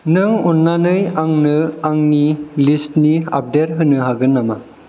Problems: none marked